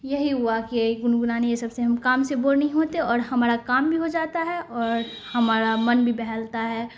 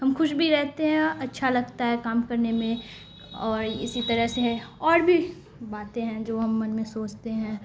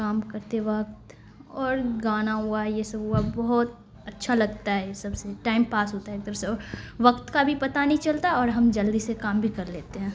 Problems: constant background noise